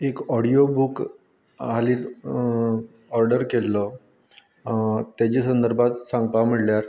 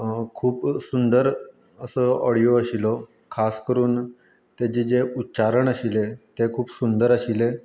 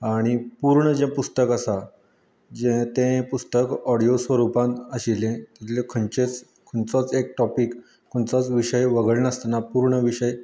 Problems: constant background noise